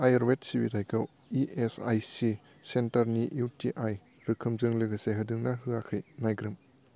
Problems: low volume